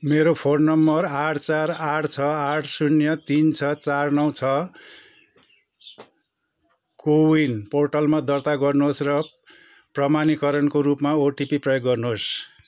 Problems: constant background noise